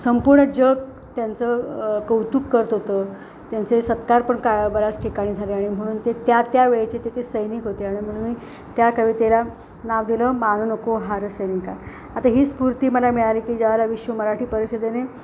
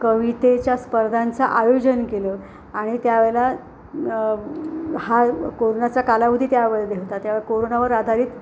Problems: constant background noise